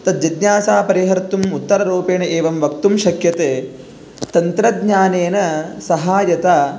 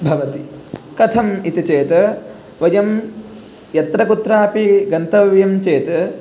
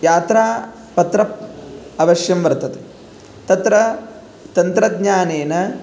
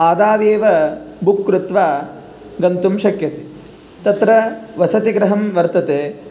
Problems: none marked